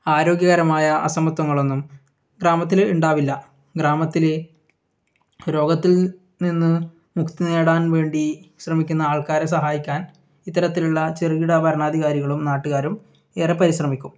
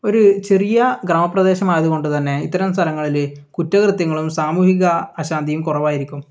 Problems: none marked